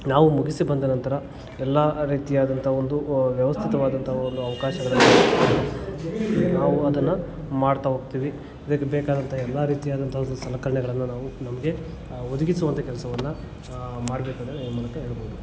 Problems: background sounds at intervals, continuous background conversations